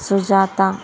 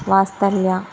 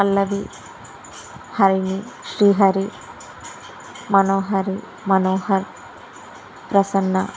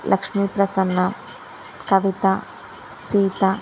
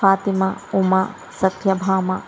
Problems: constant background noise